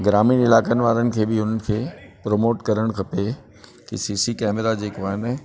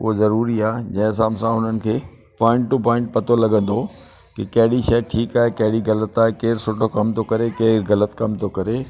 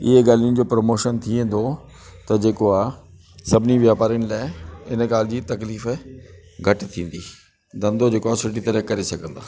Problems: constant background noise